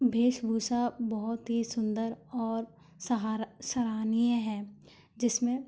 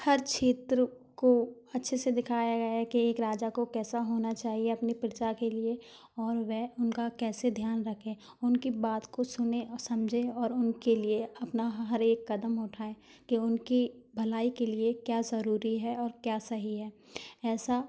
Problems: none marked